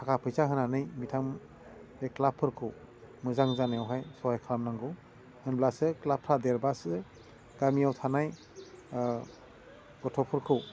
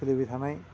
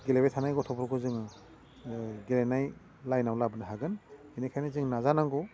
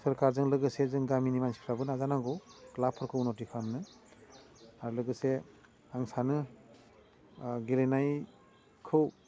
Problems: low volume